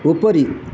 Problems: background sounds at intervals